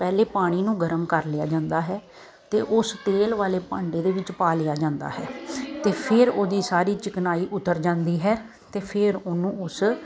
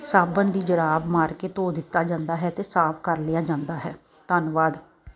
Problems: none marked